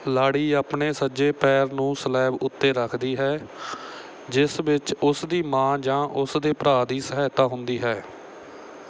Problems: none marked